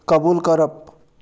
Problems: background sounds at intervals